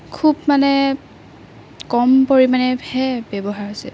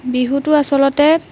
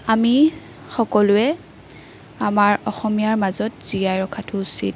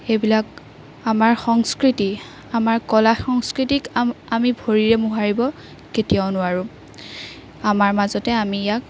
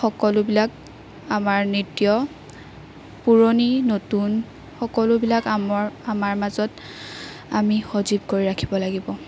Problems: background sounds at intervals